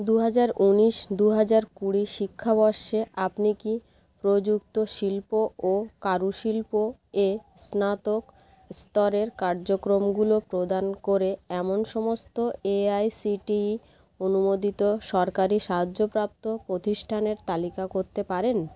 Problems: constant background noise